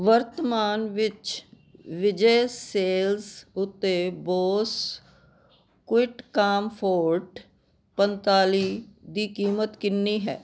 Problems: none marked